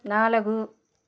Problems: constant background noise